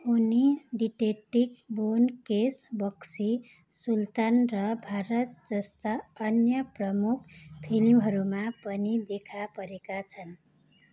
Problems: constant background noise